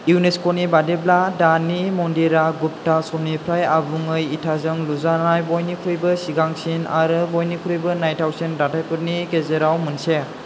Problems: none marked